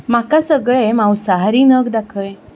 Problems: background sounds at intervals